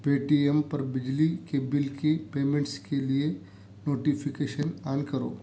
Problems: background sounds at intervals